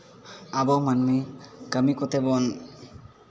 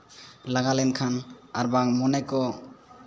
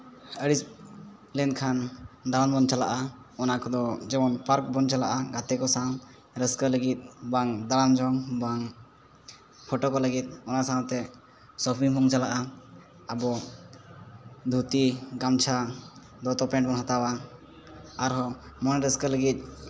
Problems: background sounds at intervals